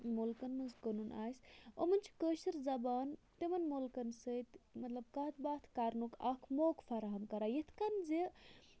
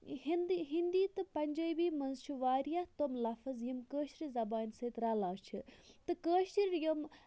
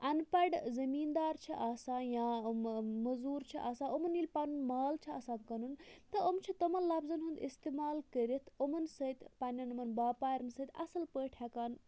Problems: constant background noise, low volume